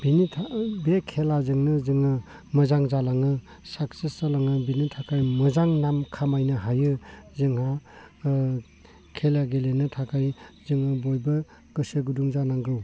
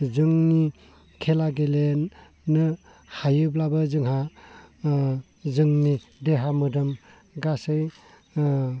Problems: low volume